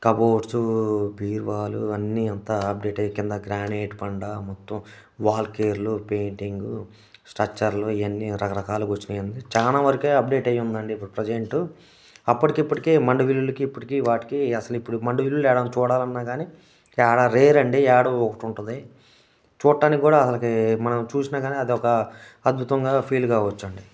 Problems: none marked